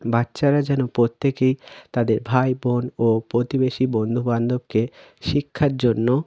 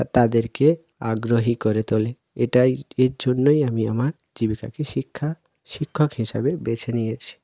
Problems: none marked